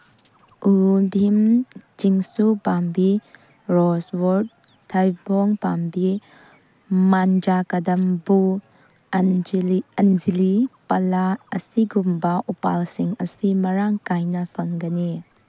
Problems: background sounds at intervals